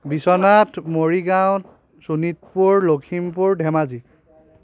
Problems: background conversations at intervals